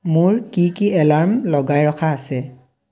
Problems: none marked